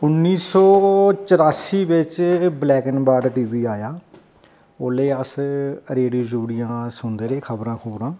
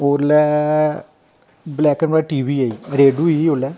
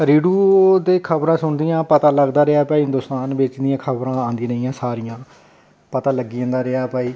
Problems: none marked